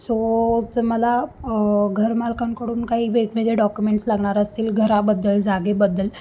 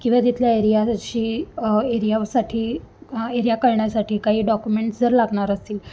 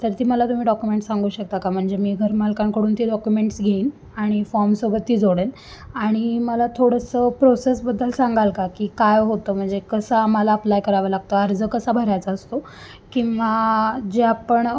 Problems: constant background noise